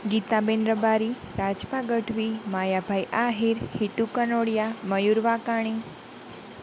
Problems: none marked